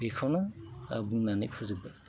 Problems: constant background noise